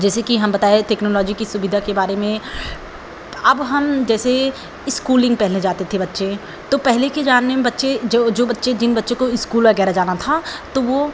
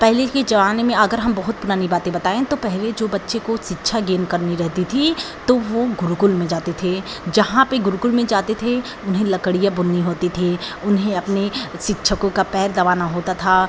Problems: none marked